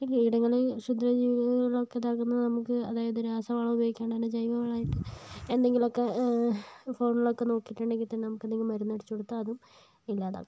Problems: low volume